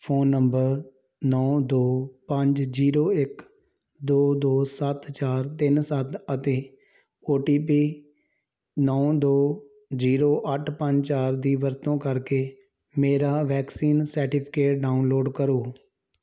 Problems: none marked